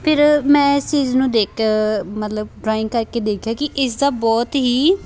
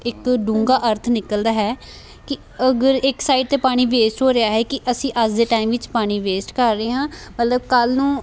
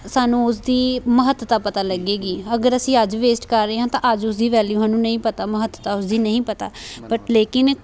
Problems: background conversations at intervals